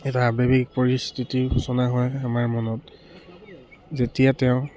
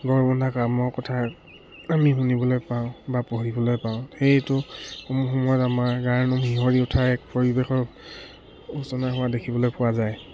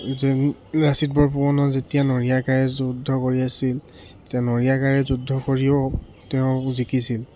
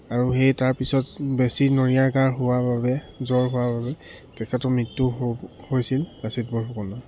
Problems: none marked